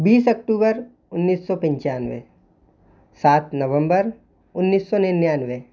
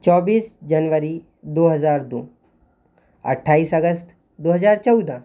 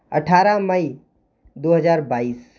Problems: constant background noise